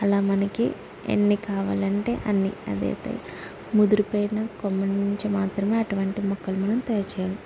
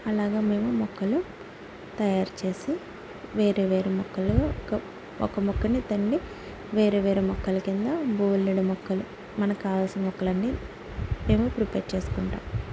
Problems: constant background noise